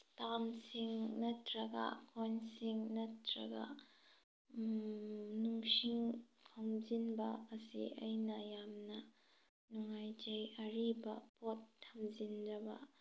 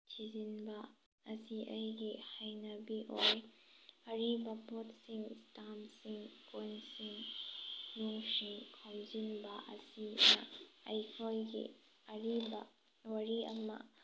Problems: none marked